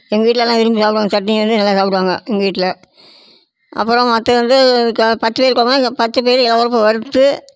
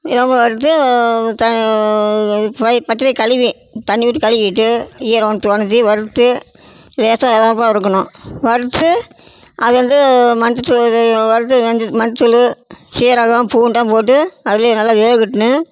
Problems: none marked